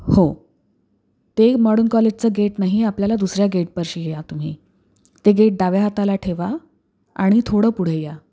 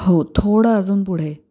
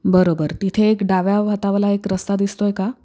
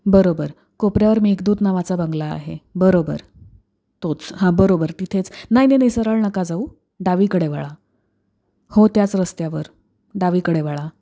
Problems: none marked